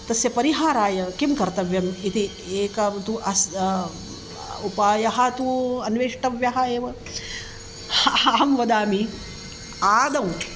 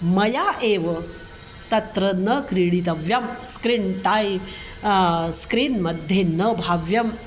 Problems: constant background noise